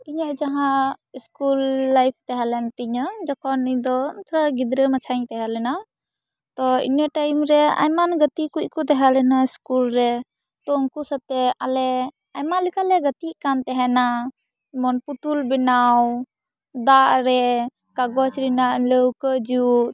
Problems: background sounds at intervals